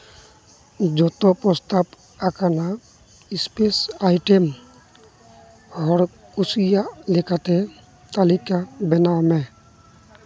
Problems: none marked